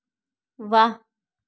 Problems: none marked